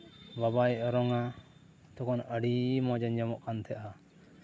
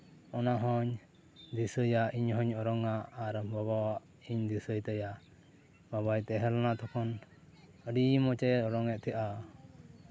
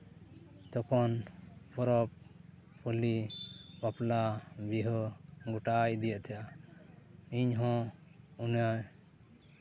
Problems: low volume